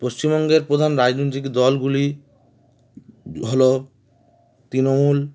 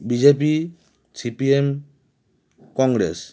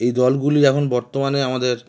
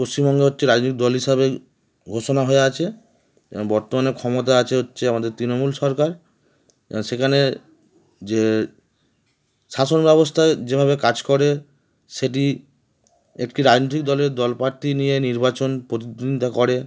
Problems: background sounds at intervals, background conversations at intervals